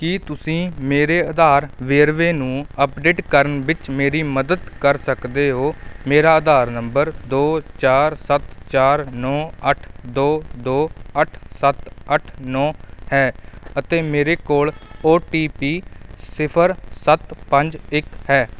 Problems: background sounds at intervals